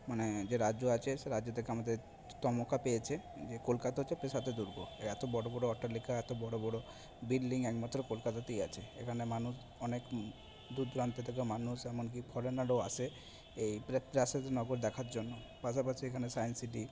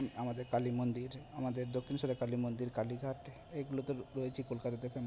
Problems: background sounds at intervals